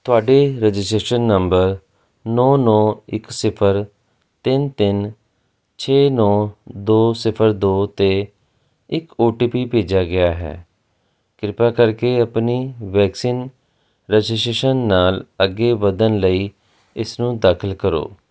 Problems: none marked